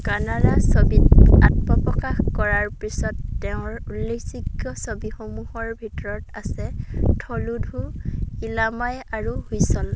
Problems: background sounds at intervals